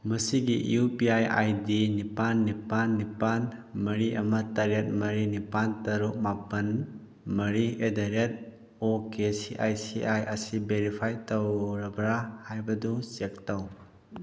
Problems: constant background noise